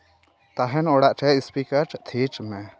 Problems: continuous background conversations